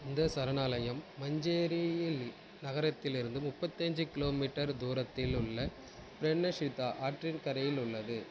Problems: none marked